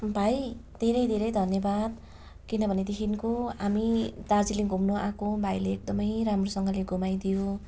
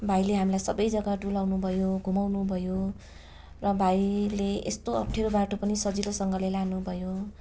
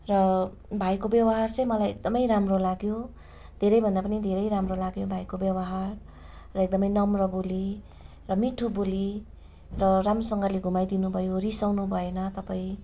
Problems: none marked